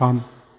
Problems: none marked